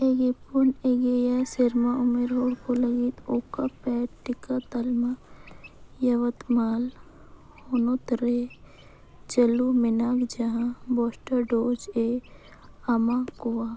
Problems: constant background noise